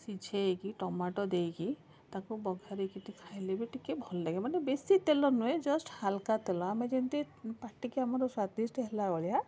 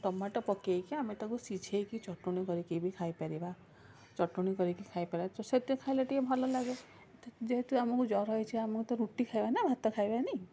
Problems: constant background noise, continuous background conversations